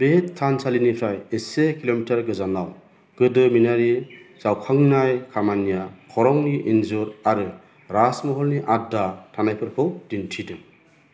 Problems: low volume